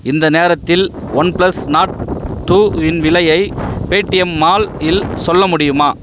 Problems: constant background noise